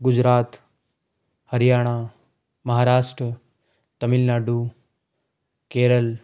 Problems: none marked